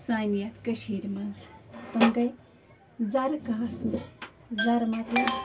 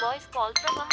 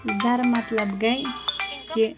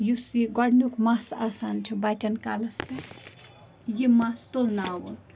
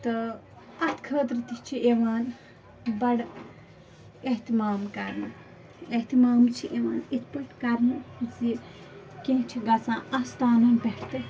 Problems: constant background noise, low volume